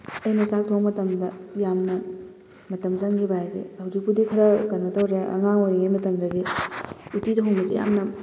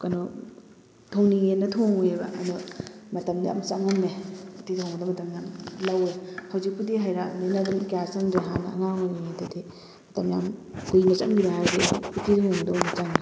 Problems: constant background noise